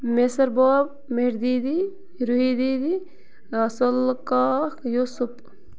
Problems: constant background noise